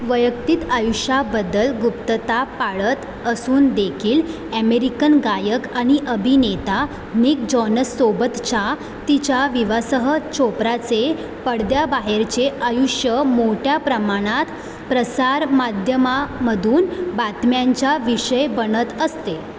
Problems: none marked